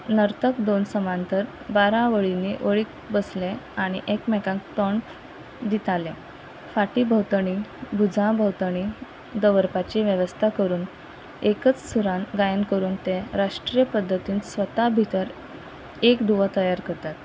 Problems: constant background noise